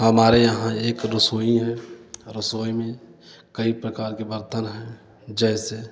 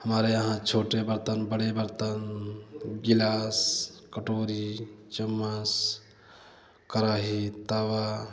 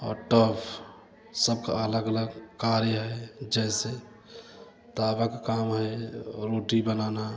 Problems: constant background noise, continuous background conversations